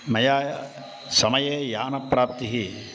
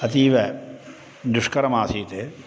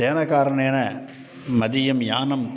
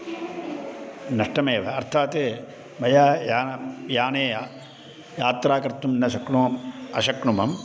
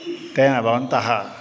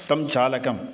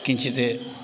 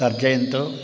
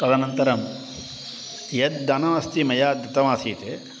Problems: constant background noise